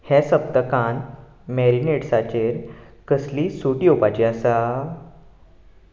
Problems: background sounds at intervals